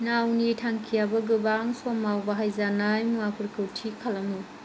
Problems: constant background noise